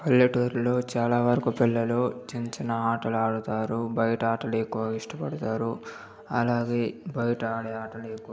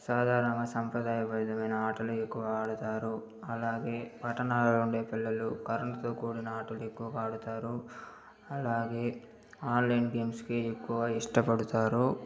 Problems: background sounds at intervals